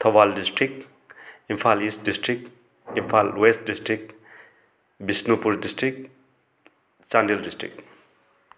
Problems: none marked